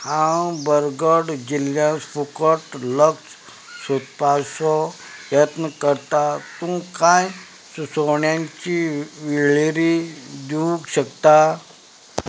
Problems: background sounds at intervals